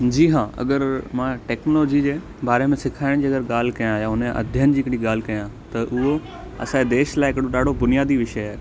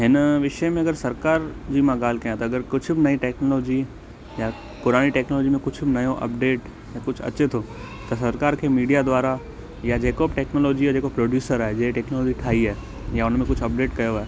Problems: constant background noise, echo